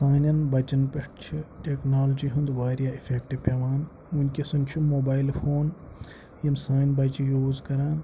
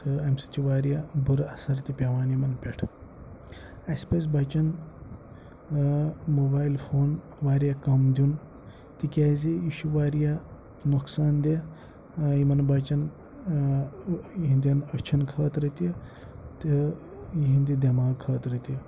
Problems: background sounds at intervals, low volume